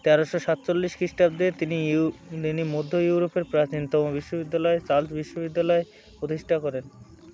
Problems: constant background noise